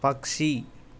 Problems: none marked